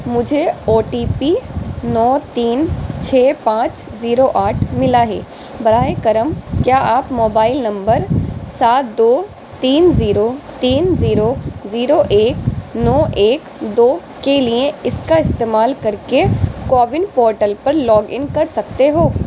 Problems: constant background noise